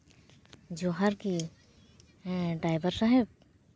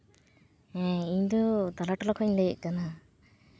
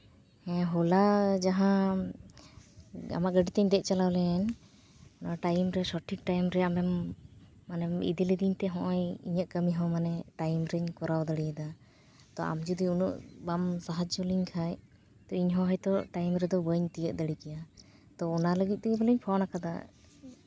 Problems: background sounds at intervals